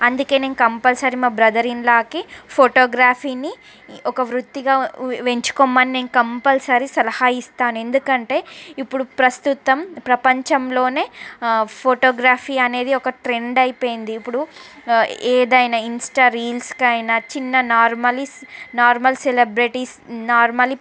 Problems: background sounds at intervals, background conversations at intervals